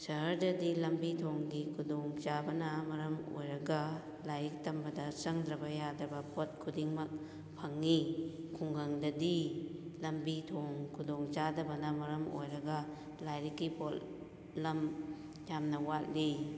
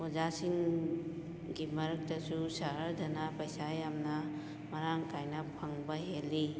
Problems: background sounds at intervals